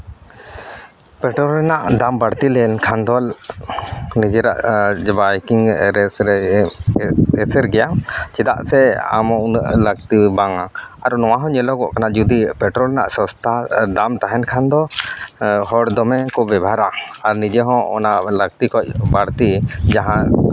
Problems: background sounds at intervals